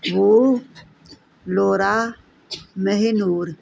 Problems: constant background noise